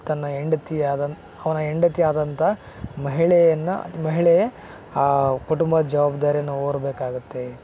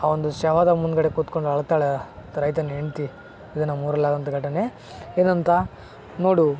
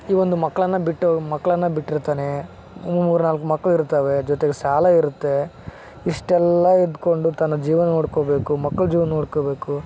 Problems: background sounds at intervals